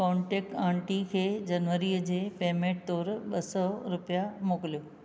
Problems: none marked